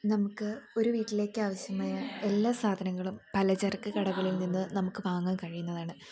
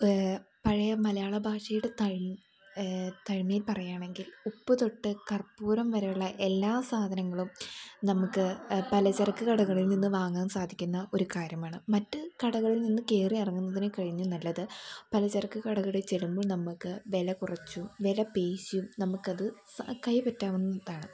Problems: none marked